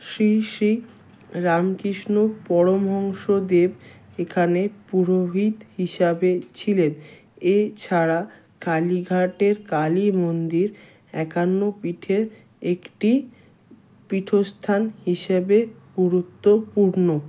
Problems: background sounds at intervals